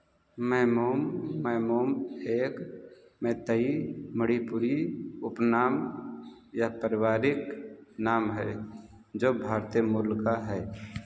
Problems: background sounds at intervals, low volume